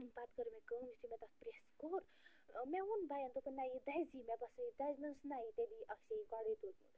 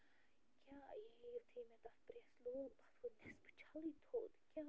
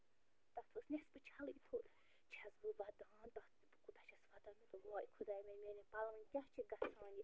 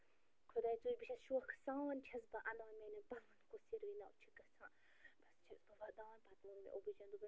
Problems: constant background noise, low volume